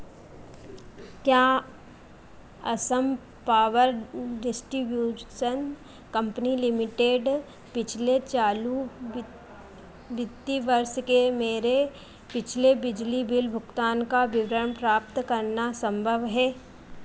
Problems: constant background noise